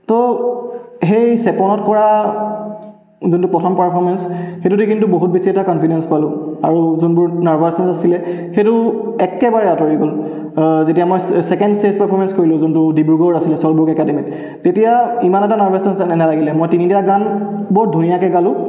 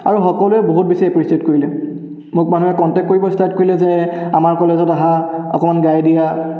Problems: background sounds at intervals, echo